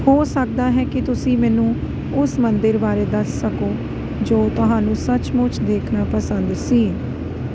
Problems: none marked